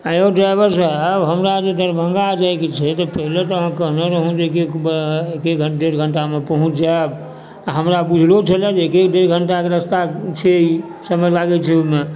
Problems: background sounds at intervals